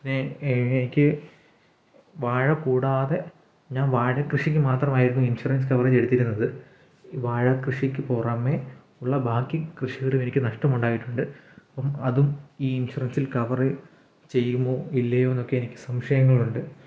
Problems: none marked